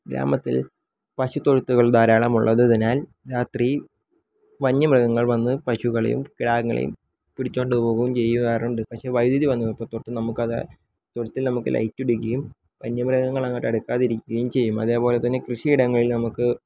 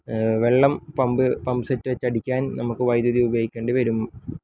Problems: low volume